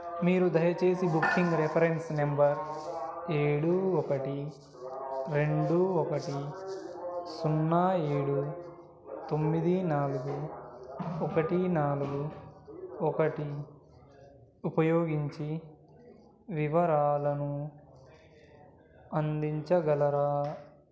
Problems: continuous background conversations